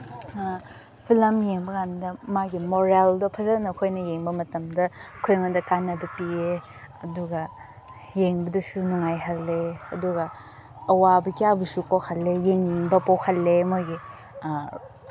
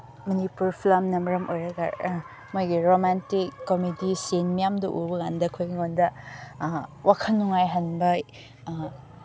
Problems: background conversations at intervals